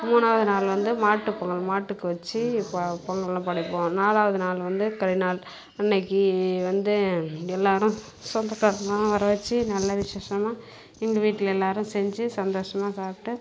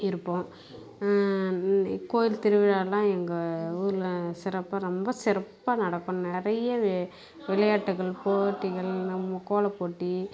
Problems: constant background noise